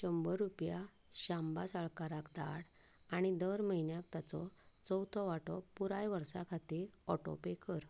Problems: background sounds at intervals